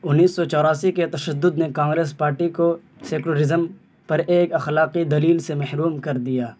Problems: constant background noise